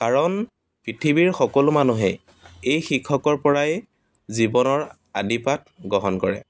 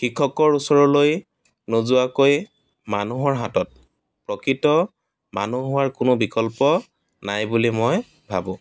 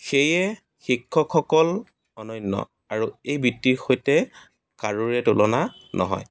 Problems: constant background noise